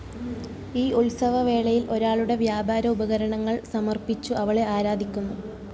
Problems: low volume